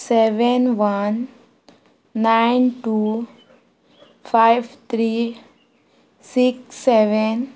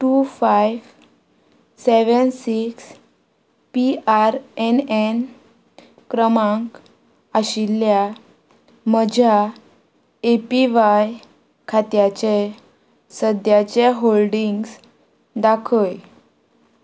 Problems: constant background noise